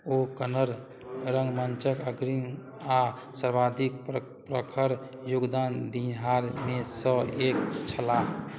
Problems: none marked